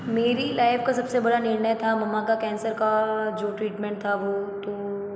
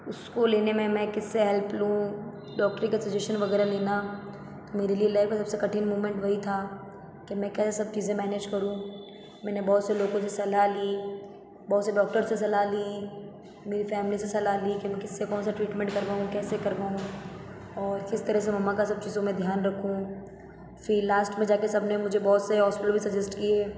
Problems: echo